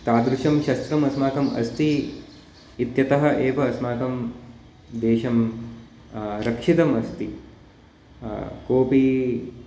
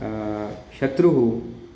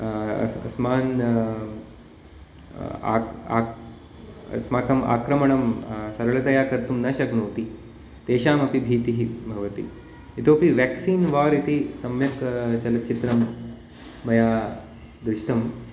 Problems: none marked